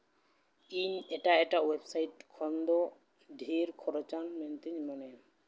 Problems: background sounds at intervals